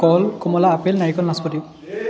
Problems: background conversations at intervals